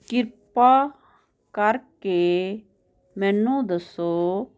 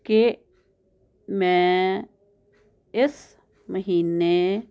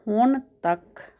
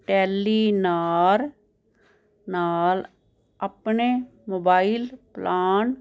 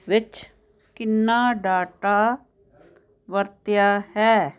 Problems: none marked